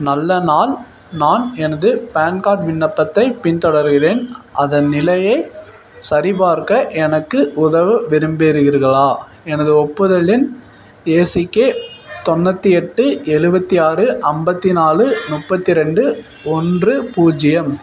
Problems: constant background noise